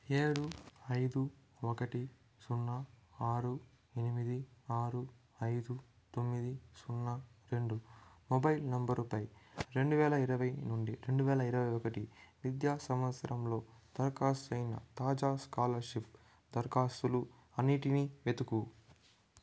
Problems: low volume